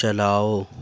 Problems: background sounds at intervals